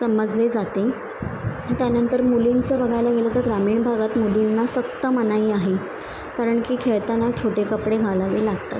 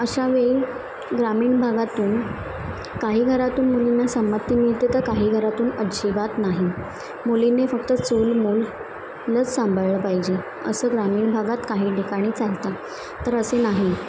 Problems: constant background noise, background conversations at intervals